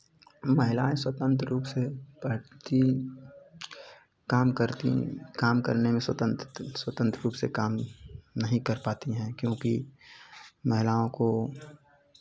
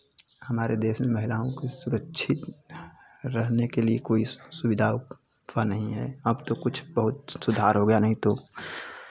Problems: none marked